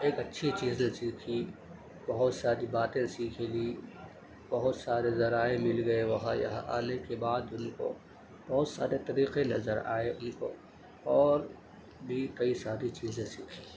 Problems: constant background noise, low volume